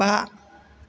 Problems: constant background noise